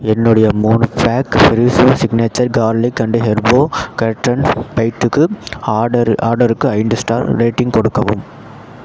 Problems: constant background noise